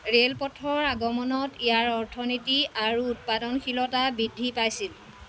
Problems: constant background noise